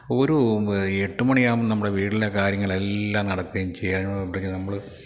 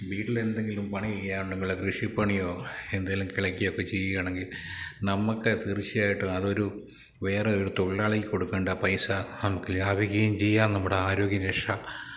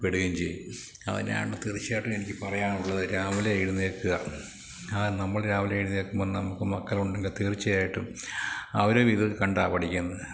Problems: low volume